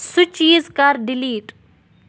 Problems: none marked